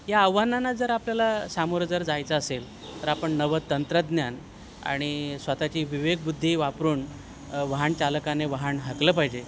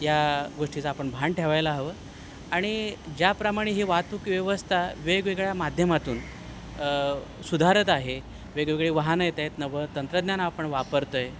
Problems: constant background noise